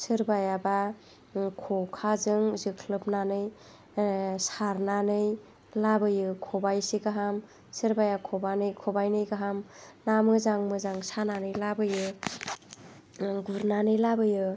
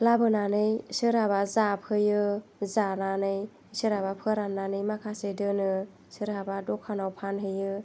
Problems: none marked